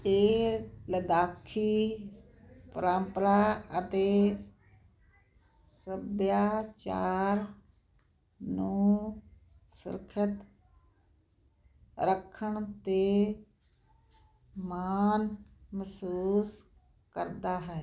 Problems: none marked